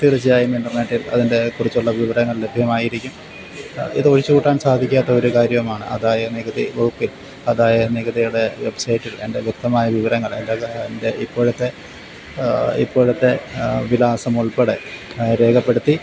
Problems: constant background noise, low volume